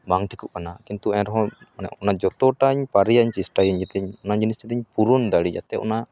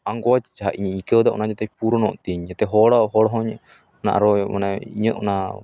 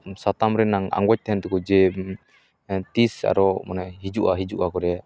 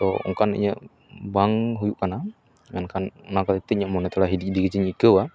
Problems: background conversations at intervals